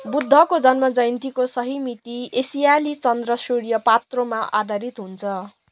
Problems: background sounds at intervals